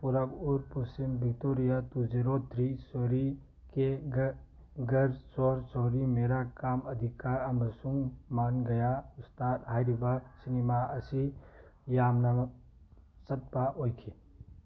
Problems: none marked